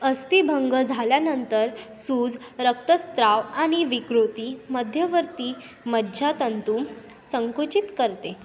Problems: constant background noise, continuous background conversations